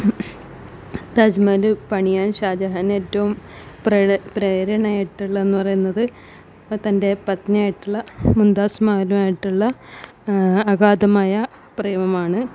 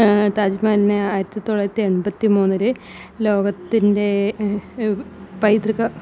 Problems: background sounds at intervals